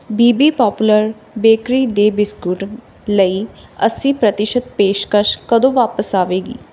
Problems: background sounds at intervals